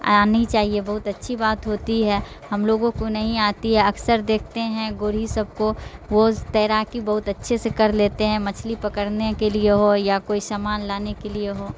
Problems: constant background noise